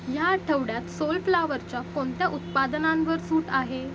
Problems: constant background noise